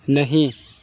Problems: constant background noise